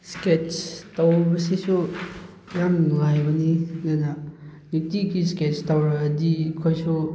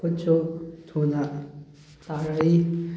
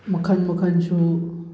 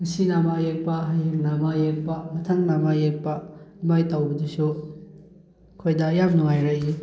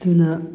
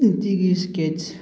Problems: none marked